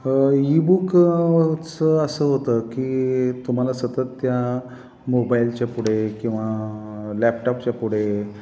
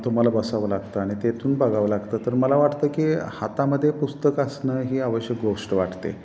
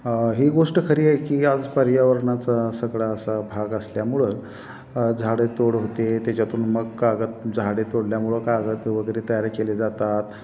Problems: constant background noise